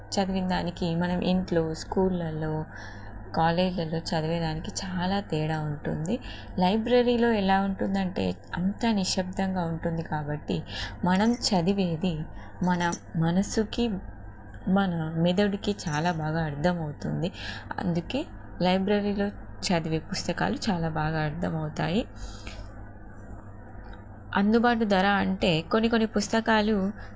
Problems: none marked